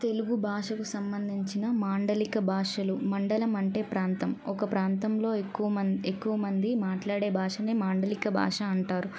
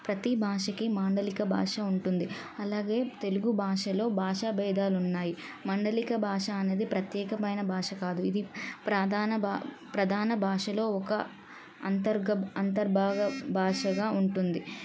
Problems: none marked